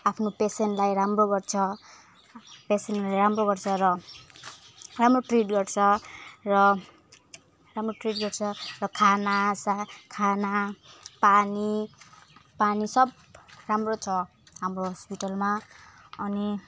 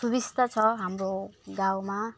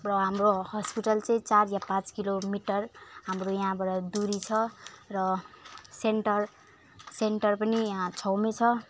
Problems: none marked